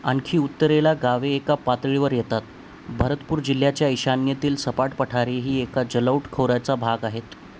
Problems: constant background noise